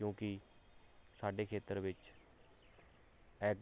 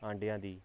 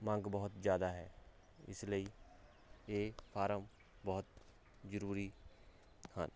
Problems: none marked